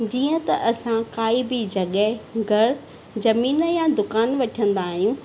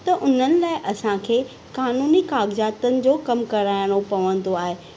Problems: constant background noise